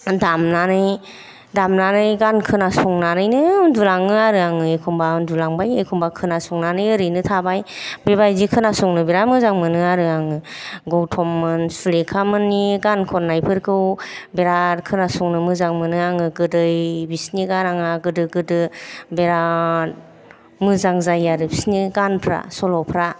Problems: none marked